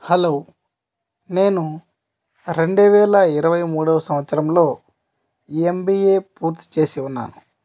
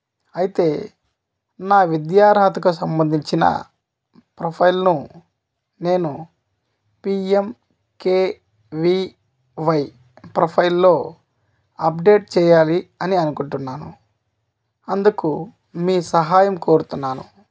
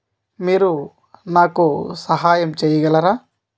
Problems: none marked